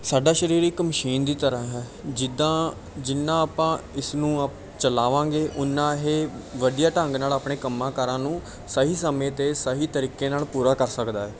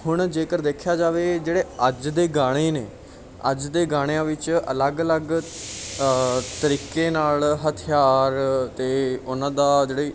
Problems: background sounds at intervals, background conversations at intervals